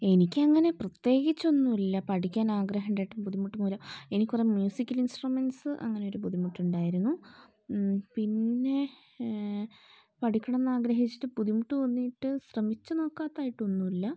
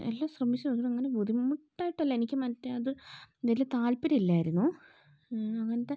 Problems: low volume